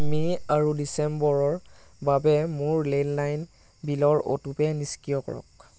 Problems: none marked